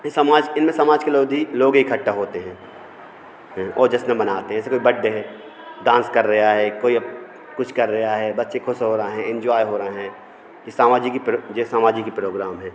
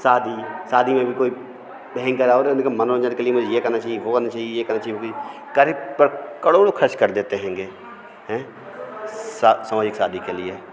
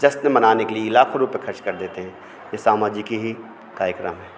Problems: constant background noise, continuous background conversations